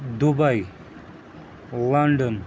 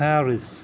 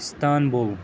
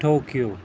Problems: constant background noise